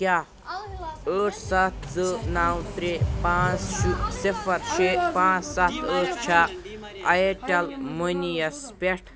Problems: continuous background conversations